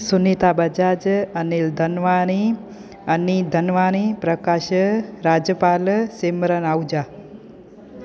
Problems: constant background noise, echo